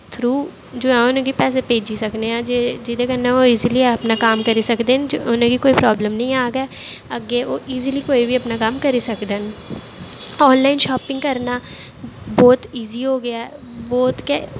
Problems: constant background noise